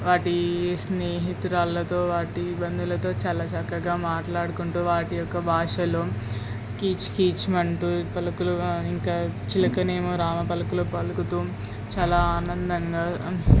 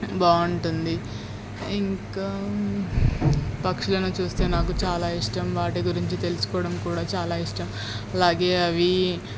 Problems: constant background noise